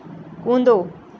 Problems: constant background noise